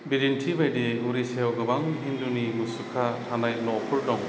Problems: none marked